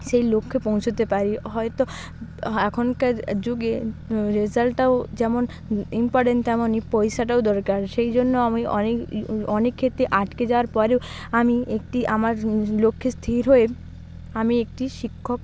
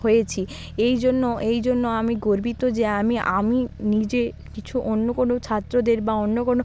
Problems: none marked